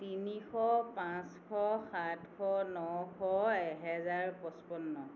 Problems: constant background noise